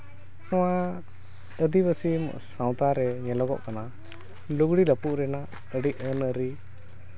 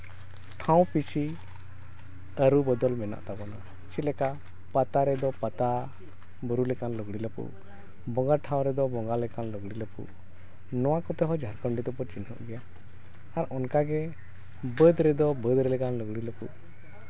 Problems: background sounds at intervals, background conversations at intervals